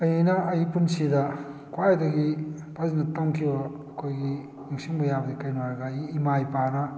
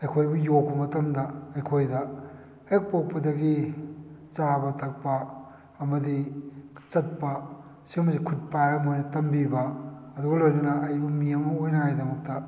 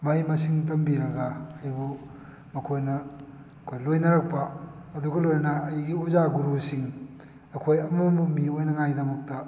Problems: none marked